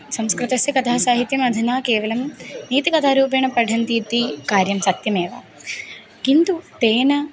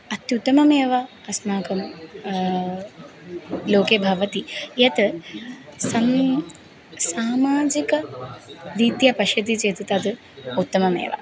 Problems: background sounds at intervals